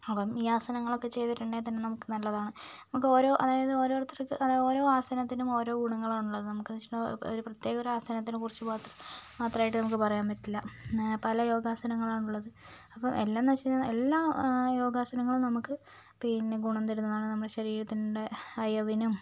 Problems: low volume